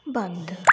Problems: background sounds at intervals